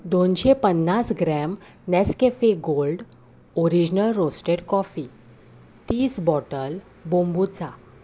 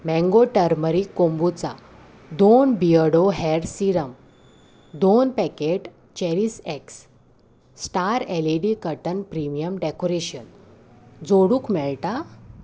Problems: none marked